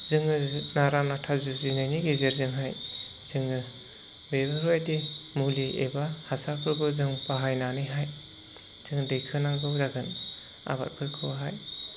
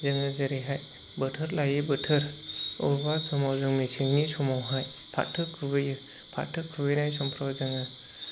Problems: constant background noise